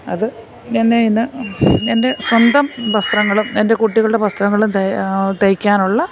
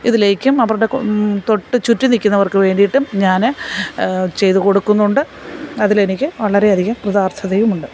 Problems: none marked